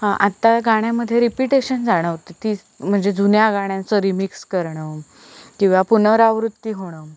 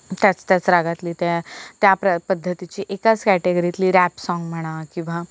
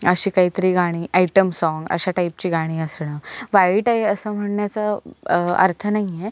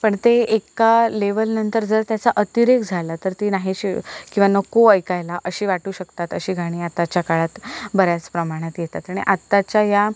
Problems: none marked